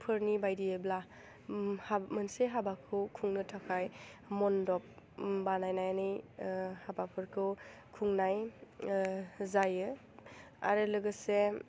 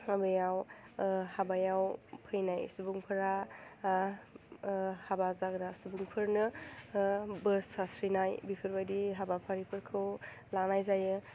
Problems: none marked